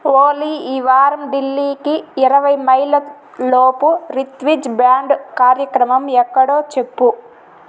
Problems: constant background noise